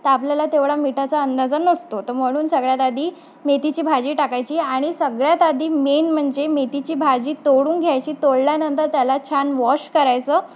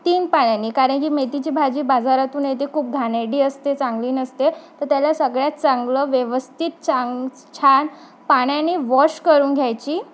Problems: background sounds at intervals